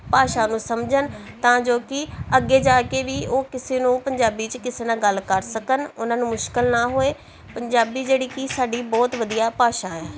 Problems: continuous background conversations